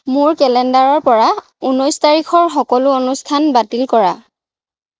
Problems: none marked